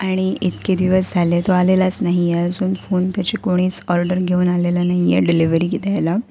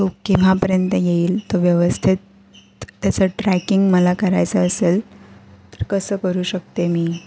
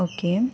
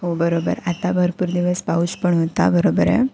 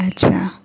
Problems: none marked